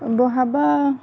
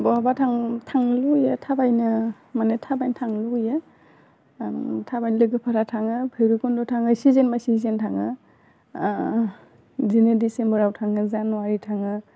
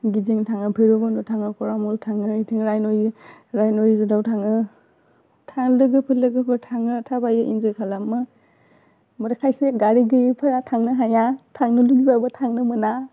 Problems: constant background noise